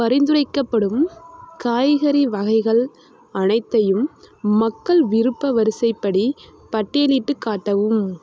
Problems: constant background noise